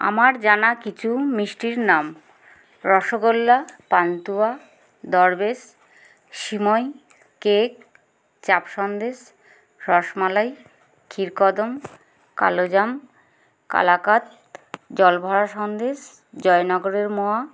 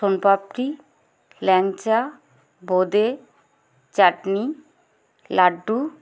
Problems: background sounds at intervals, background conversations at intervals